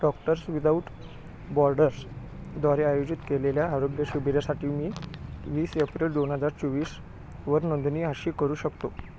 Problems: constant background noise